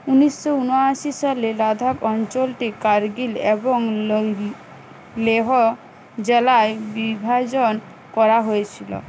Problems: constant background noise